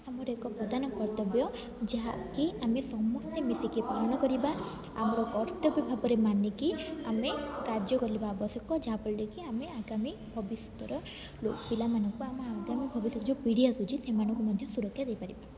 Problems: none marked